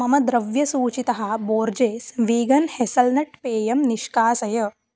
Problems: none marked